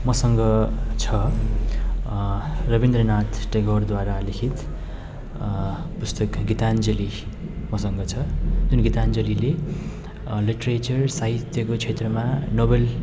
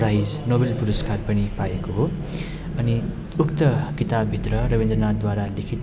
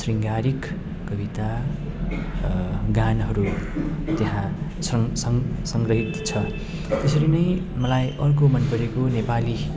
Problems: constant background noise